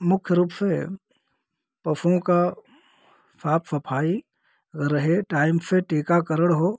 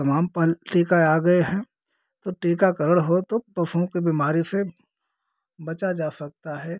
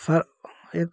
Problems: none marked